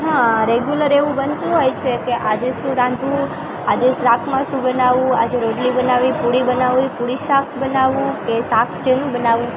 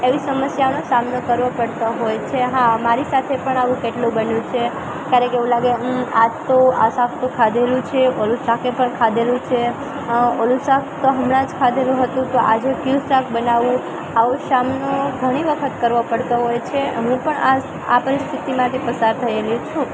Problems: constant background noise, continuous background conversations